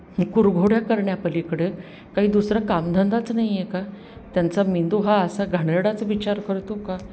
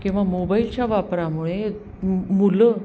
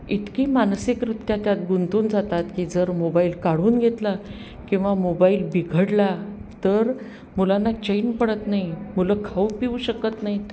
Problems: none marked